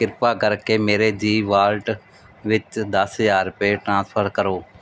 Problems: none marked